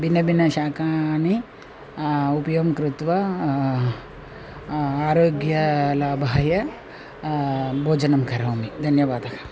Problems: none marked